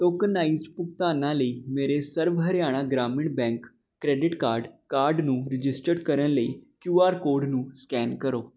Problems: none marked